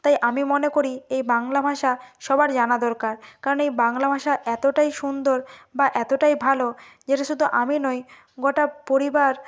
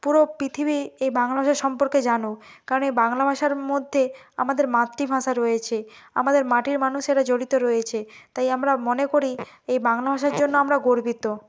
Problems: background sounds at intervals